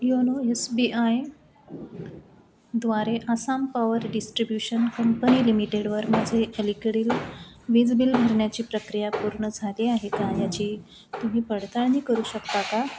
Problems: constant background noise, low volume